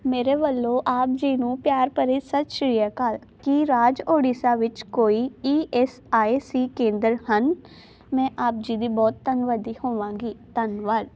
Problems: none marked